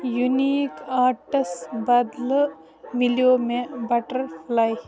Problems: echo